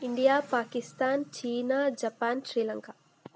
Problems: none marked